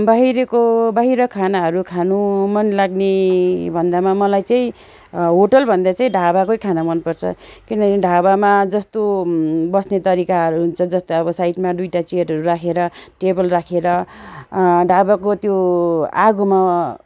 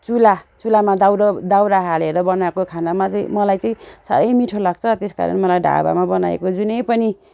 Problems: none marked